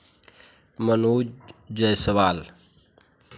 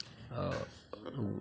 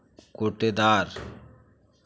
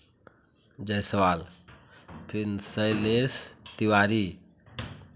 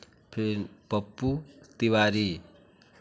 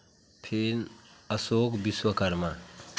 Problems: constant background noise, continuous background conversations